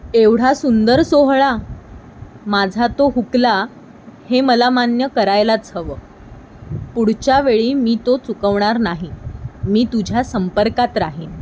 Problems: none marked